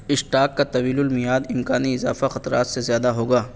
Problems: constant background noise